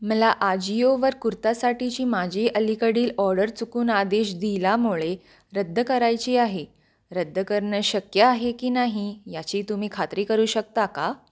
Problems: none marked